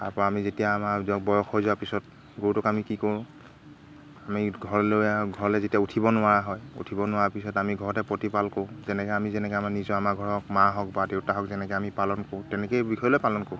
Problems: constant background noise